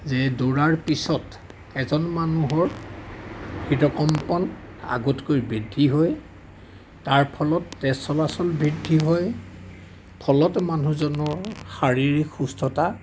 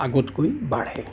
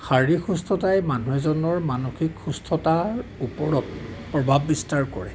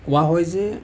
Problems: background sounds at intervals, background conversations at intervals